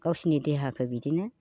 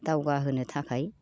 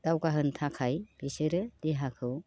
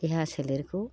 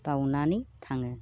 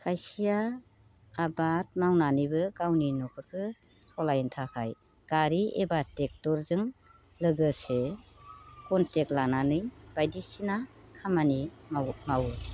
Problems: constant background noise